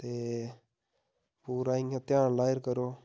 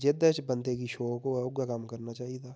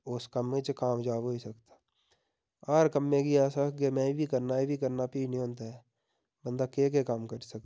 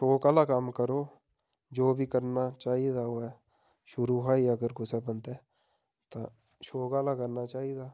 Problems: none marked